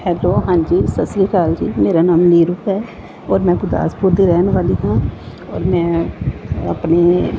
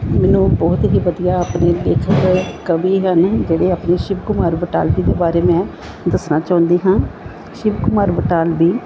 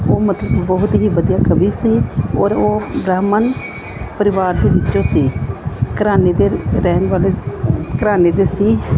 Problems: constant background noise, background conversations at intervals